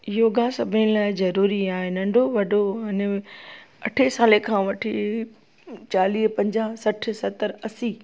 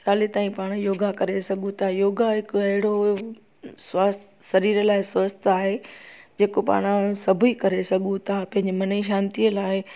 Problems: constant background noise